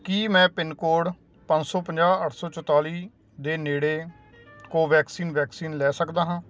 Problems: none marked